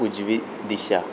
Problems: constant background noise